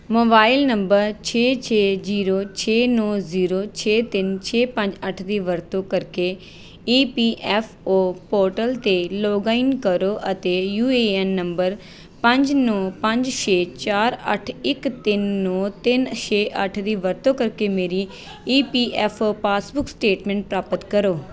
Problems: background sounds at intervals, background conversations at intervals